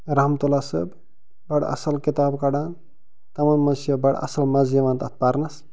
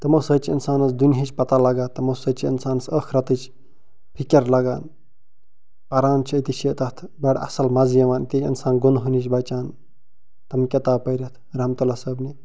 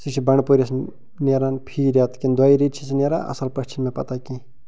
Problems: background sounds at intervals